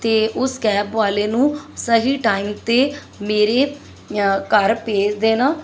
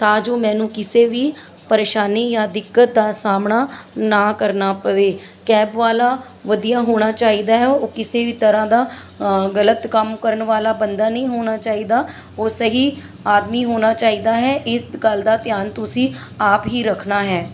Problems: constant background noise